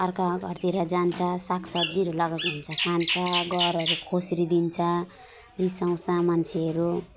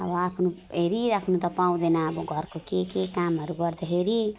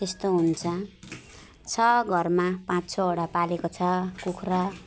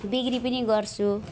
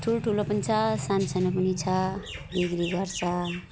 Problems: constant background noise, continuous background conversations